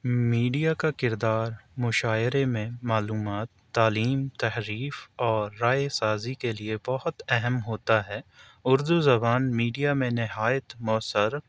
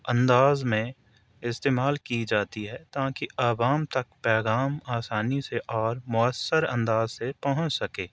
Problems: none marked